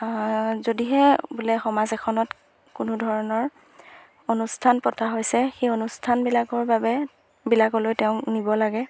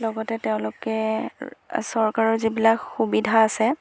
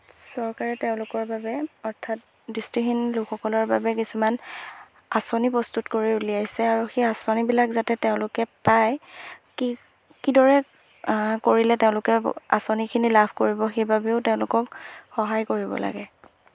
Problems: none marked